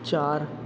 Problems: constant background noise, echo